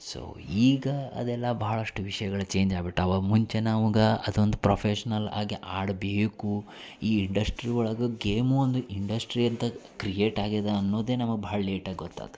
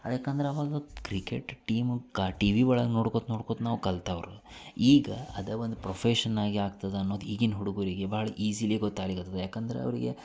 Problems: none marked